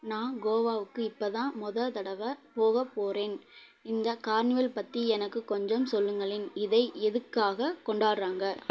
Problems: none marked